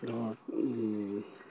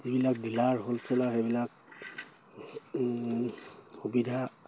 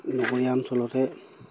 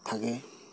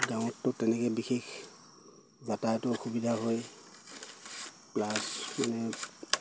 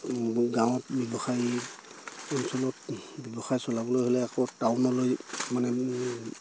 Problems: none marked